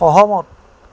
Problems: none marked